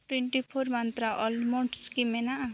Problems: none marked